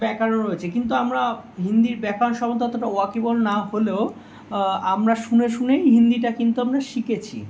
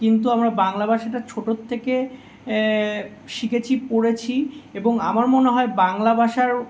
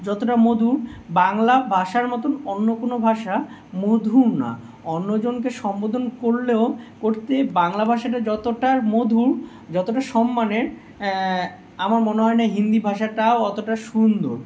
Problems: none marked